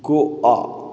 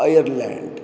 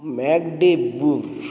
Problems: none marked